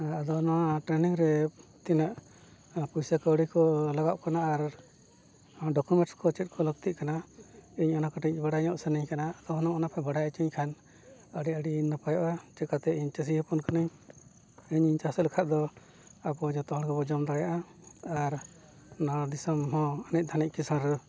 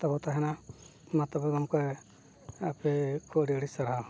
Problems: none marked